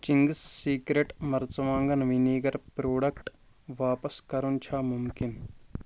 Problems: constant background noise